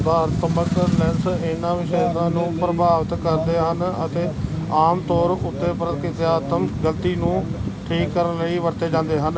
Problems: constant background noise